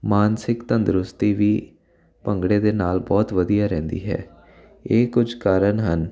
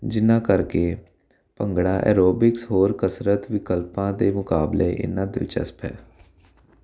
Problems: constant background noise